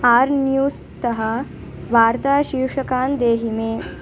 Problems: constant background noise, continuous background conversations